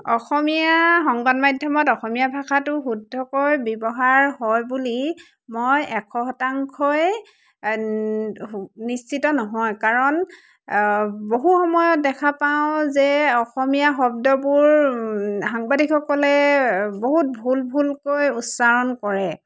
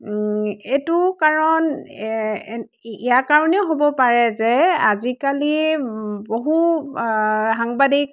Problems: constant background noise, background conversations at intervals